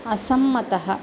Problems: constant background noise